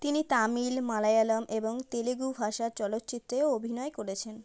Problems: none marked